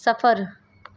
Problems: none marked